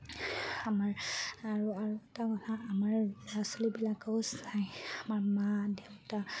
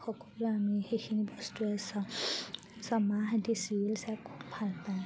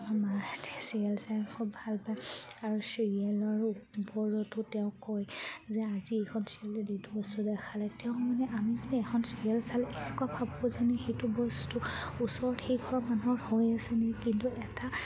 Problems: none marked